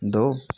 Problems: constant background noise